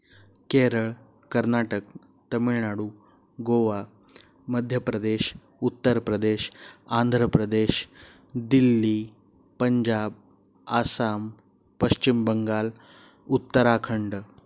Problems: background sounds at intervals